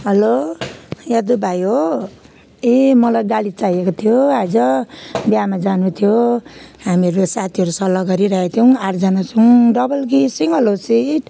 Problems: background sounds at intervals